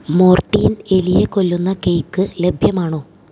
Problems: low volume